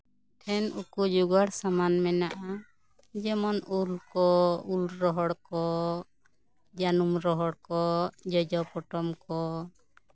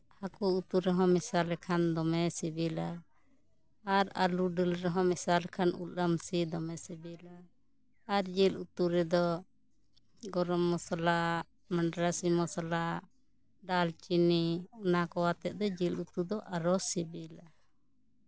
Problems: continuous background conversations